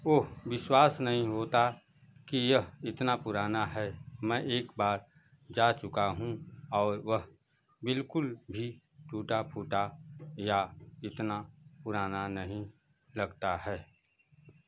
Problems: constant background noise